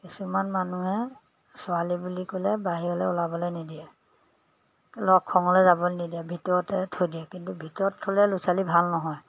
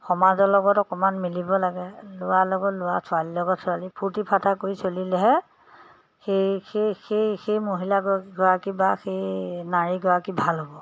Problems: background sounds at intervals